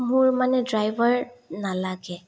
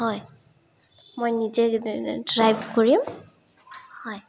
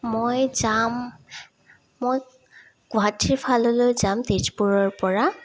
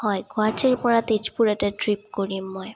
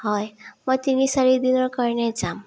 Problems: none marked